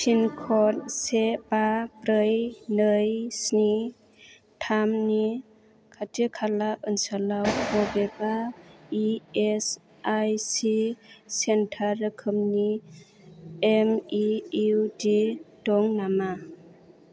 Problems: low volume